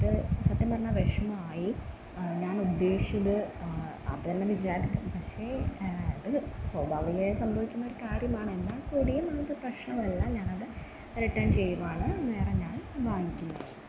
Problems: background sounds at intervals